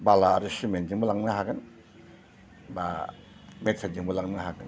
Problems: none marked